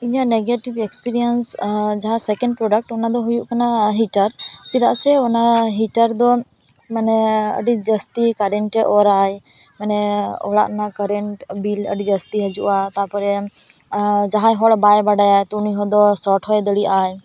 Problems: background conversations at intervals